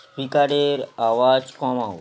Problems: constant background noise